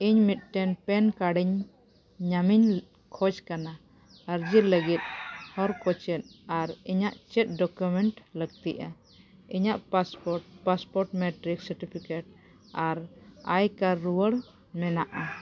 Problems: background sounds at intervals